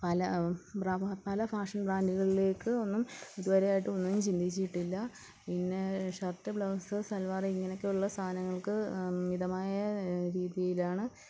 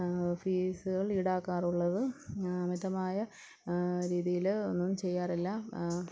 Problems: low volume